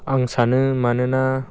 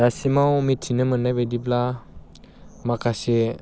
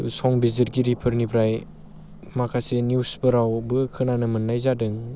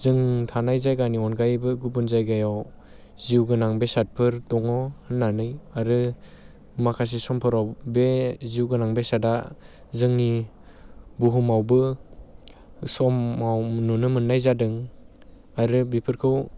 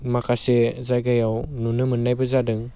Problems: constant background noise